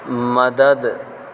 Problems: constant background noise